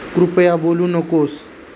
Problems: constant background noise